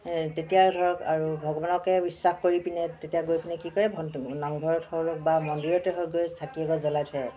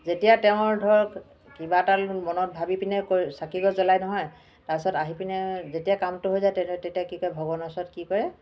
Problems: none marked